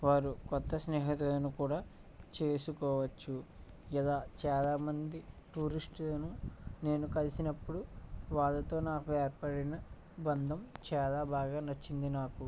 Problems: low volume